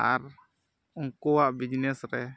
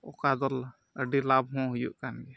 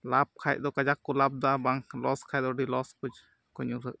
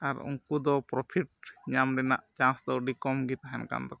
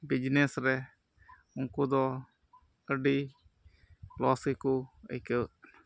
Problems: background sounds at intervals